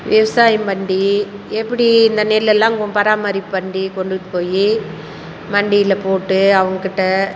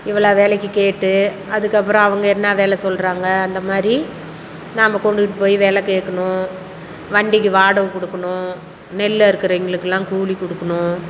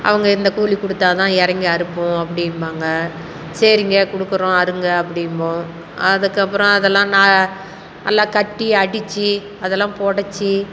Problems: constant background noise